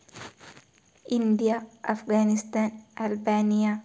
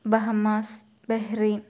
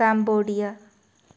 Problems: low volume